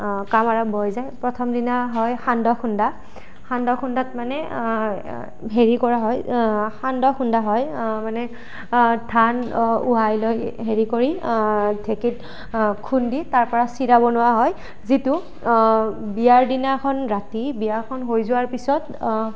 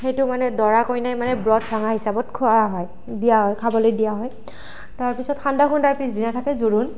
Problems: constant background noise